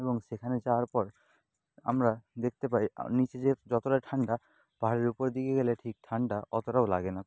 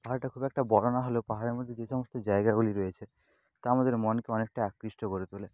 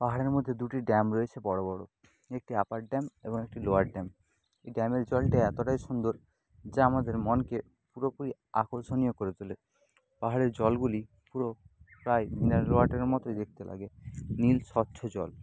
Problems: constant background noise